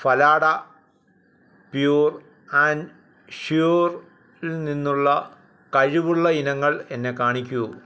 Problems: background sounds at intervals